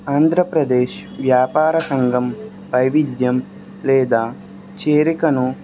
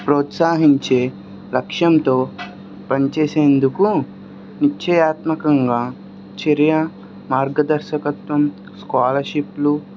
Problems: constant background noise